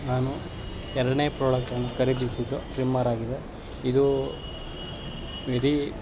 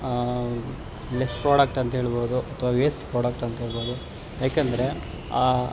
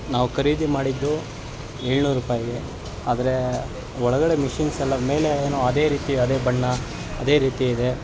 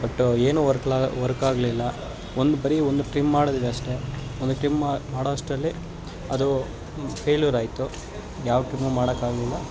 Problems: constant background noise